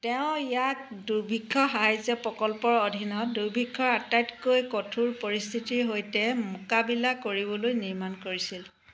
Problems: constant background noise